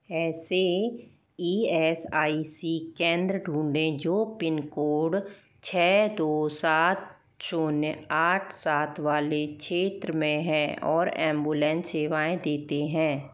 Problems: background sounds at intervals